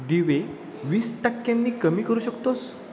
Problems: none marked